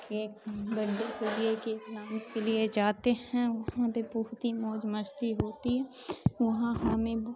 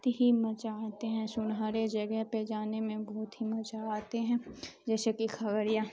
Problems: constant background noise